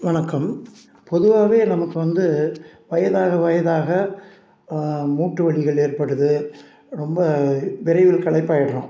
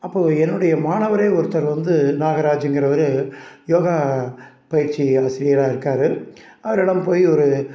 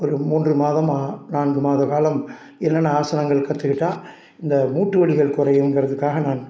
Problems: none marked